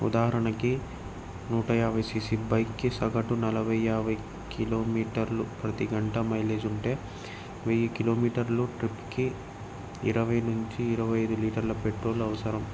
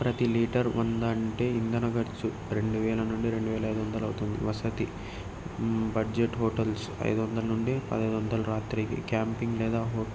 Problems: none marked